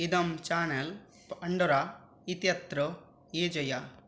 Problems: none marked